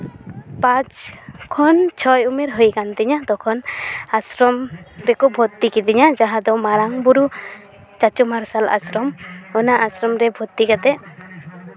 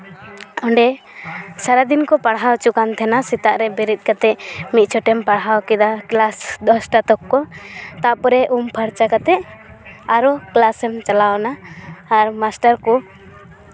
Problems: background conversations at intervals